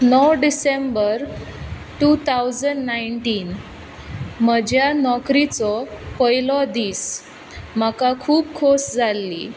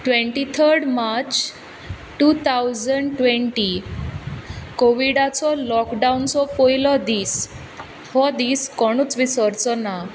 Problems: background sounds at intervals